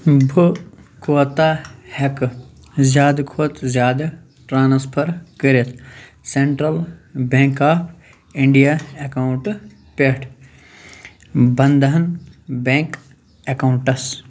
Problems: none marked